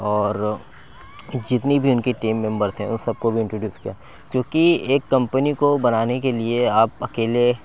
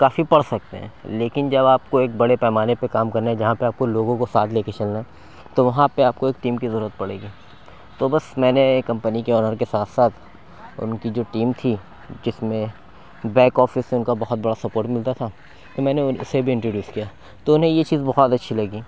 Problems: none marked